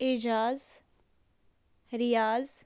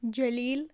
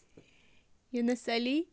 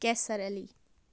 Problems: background conversations at intervals, low volume